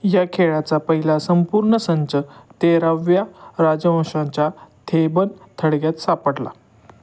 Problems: background sounds at intervals